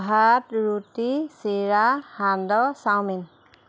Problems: constant background noise